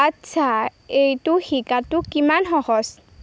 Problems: constant background noise